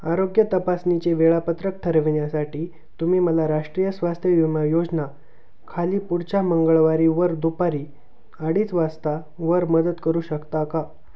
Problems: constant background noise